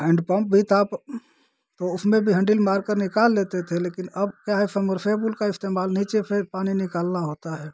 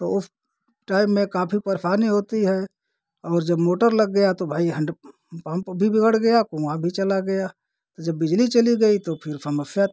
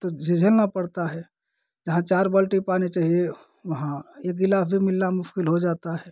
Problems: constant background noise